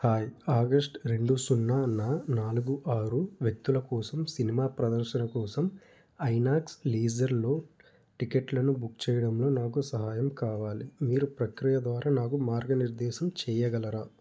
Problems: background sounds at intervals